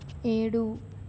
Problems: none marked